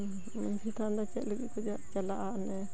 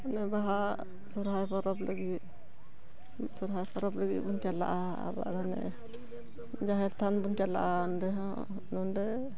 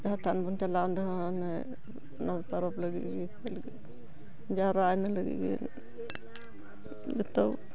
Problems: continuous background conversations, low volume